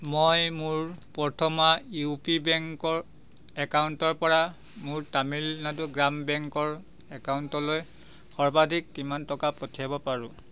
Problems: background sounds at intervals